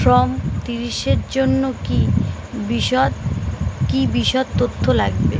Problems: constant background noise